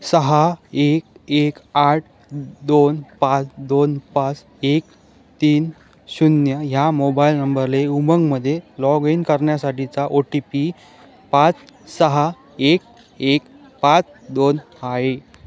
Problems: none marked